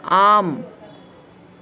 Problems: continuous background conversations